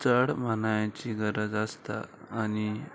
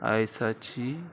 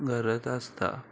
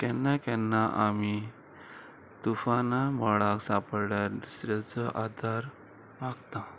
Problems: constant background noise